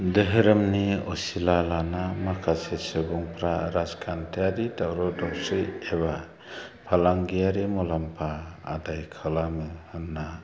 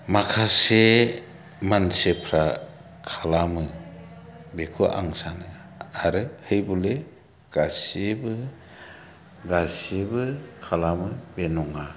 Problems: background sounds at intervals, low volume